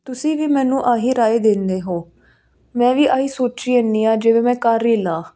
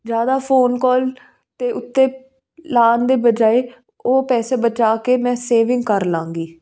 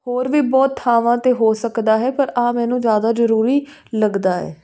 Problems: constant background noise